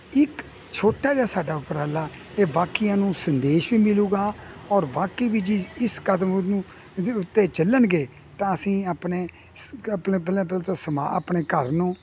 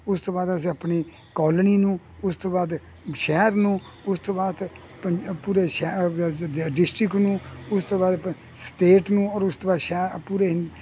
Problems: constant background noise